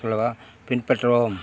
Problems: background conversations at intervals